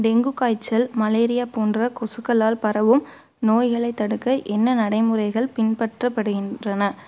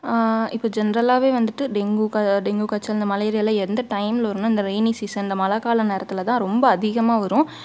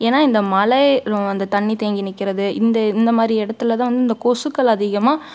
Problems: none marked